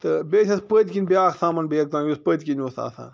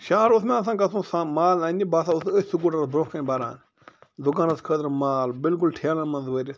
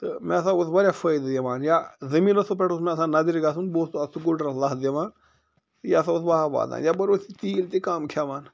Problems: none marked